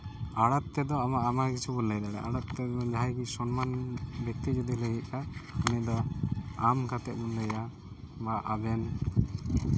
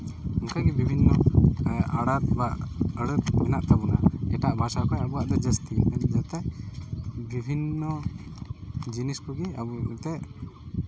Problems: none marked